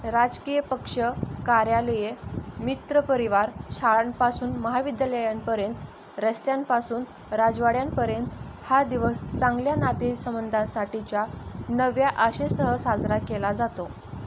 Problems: constant background noise